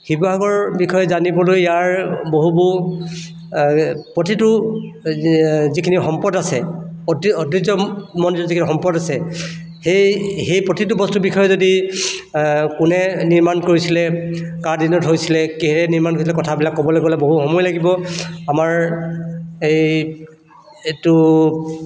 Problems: none marked